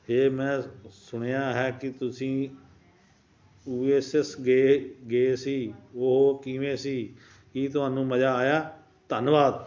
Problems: none marked